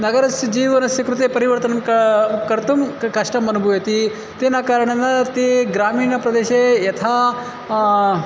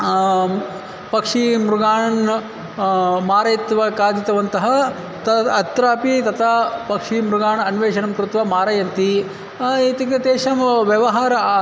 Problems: constant background noise, background conversations at intervals